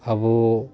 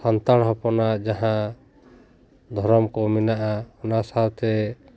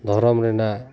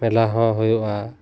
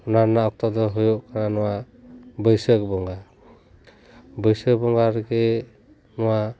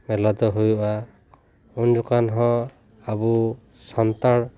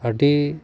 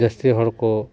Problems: background sounds at intervals, background conversations at intervals